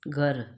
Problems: none marked